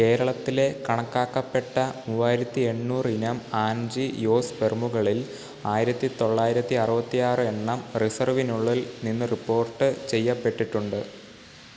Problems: constant background noise